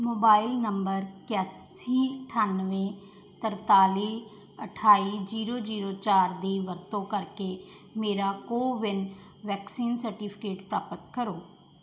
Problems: background sounds at intervals